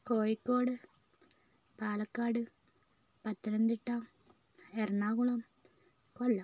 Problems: low volume